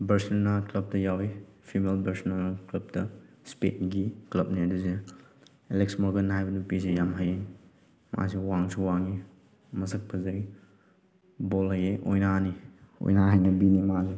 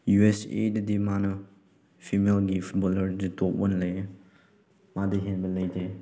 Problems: none marked